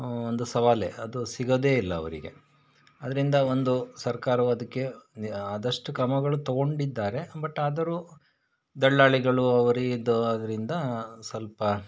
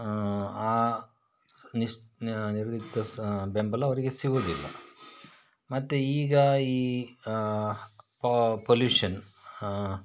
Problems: background sounds at intervals